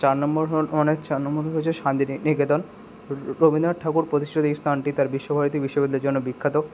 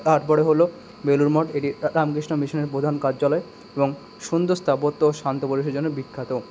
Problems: constant background noise